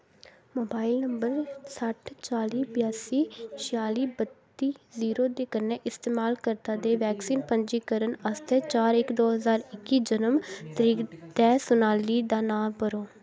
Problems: background conversations at intervals